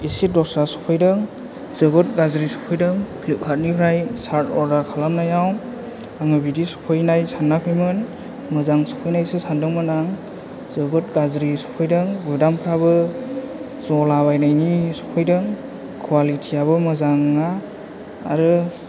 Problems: low volume